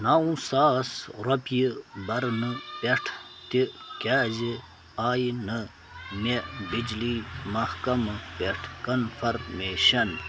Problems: constant background noise